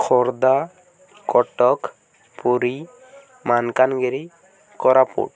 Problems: none marked